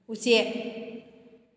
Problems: none marked